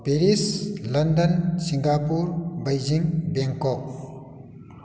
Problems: background sounds at intervals